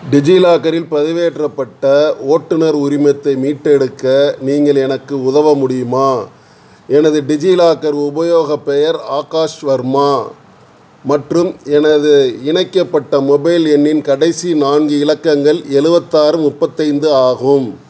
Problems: background sounds at intervals